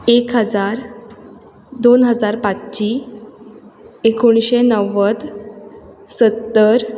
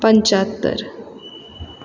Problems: constant background noise